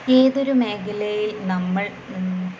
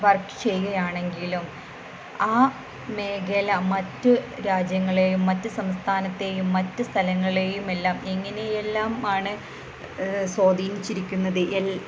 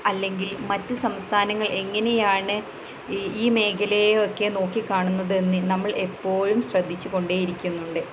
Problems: constant background noise, low volume